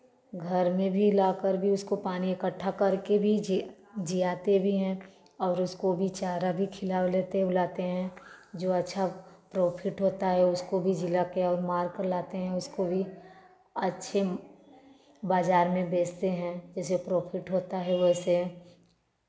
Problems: none marked